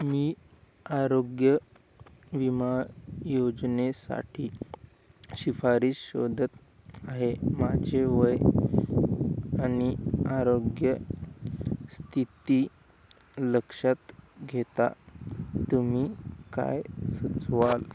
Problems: none marked